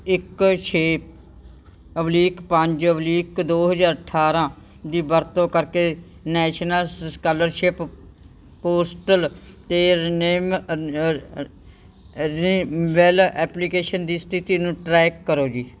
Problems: background sounds at intervals